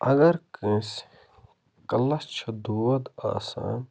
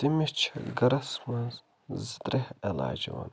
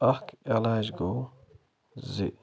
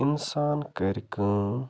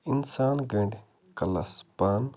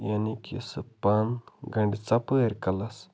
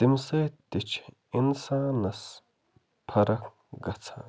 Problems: none marked